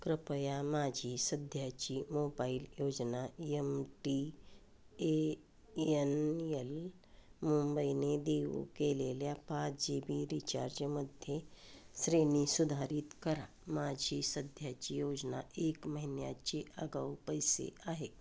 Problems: constant background noise, low volume